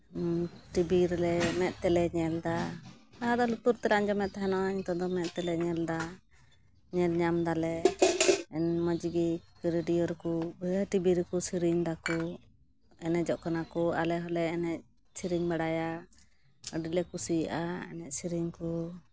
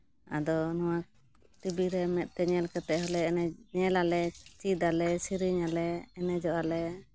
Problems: background sounds at intervals